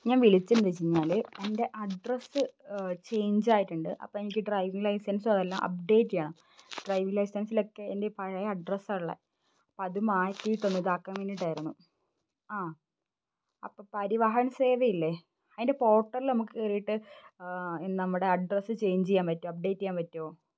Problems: none marked